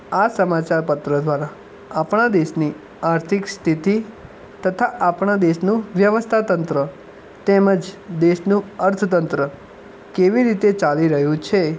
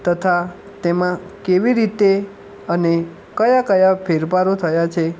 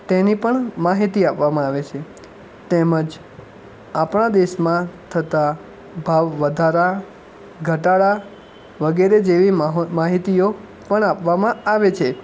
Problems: background sounds at intervals